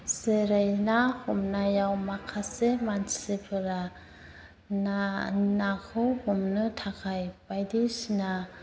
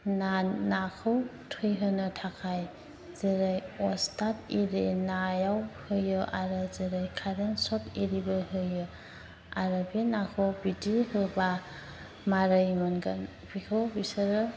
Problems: constant background noise